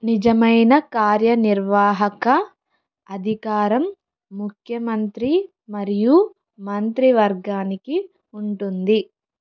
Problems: none marked